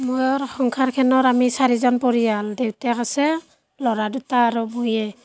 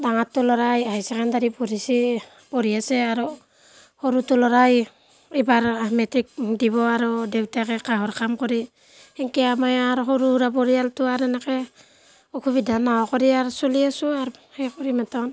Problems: none marked